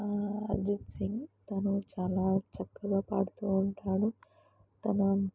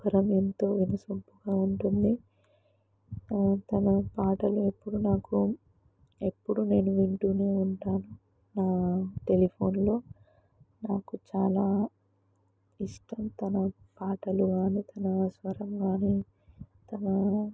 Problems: low volume